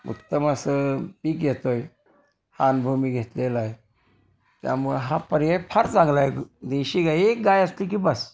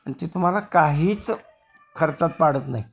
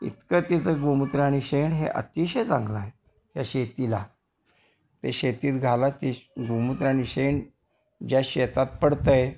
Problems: constant background noise, background conversations at intervals